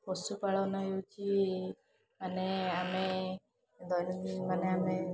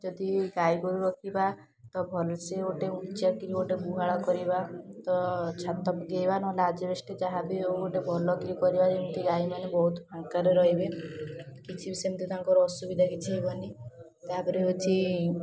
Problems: constant background noise, continuous background conversations